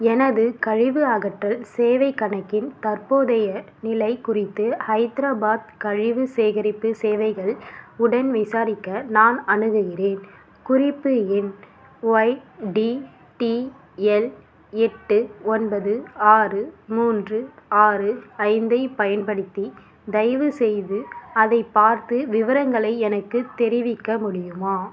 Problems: none marked